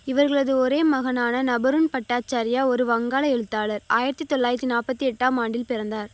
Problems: constant background noise